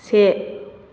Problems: constant background noise